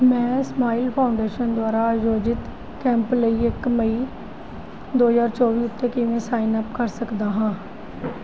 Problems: none marked